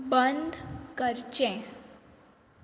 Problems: constant background noise